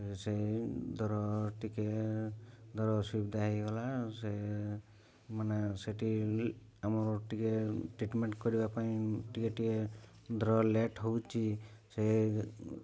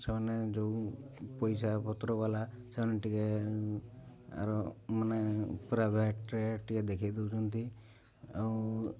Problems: low volume